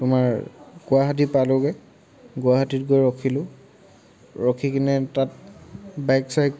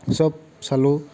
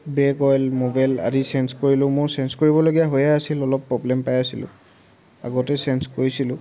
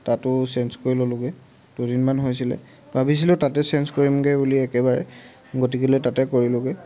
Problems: none marked